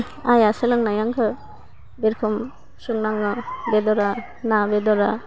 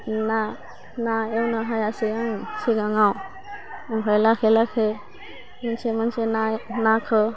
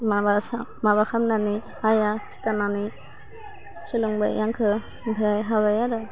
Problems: constant background noise